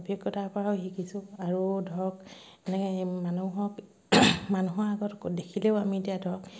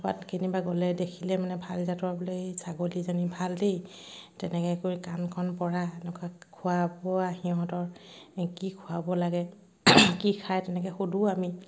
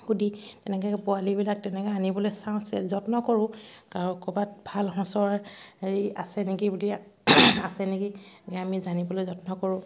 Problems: background sounds at intervals